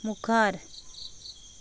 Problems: background sounds at intervals